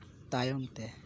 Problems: none marked